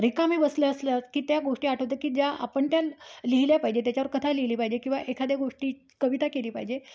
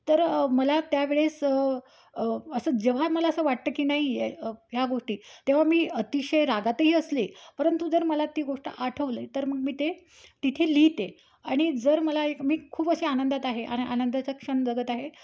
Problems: none marked